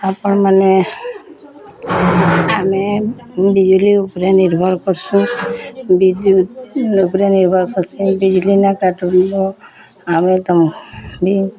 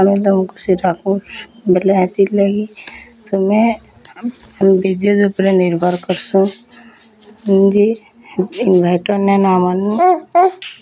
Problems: constant background noise, continuous background conversations